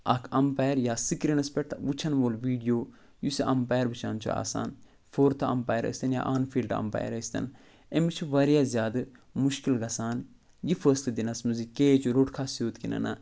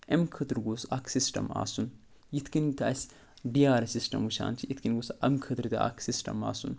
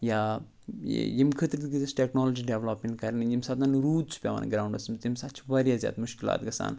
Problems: none marked